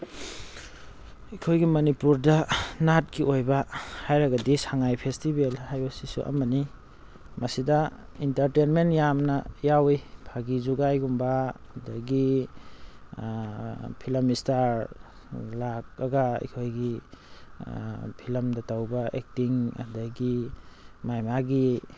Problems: constant background noise